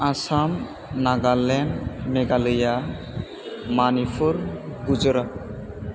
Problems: constant background noise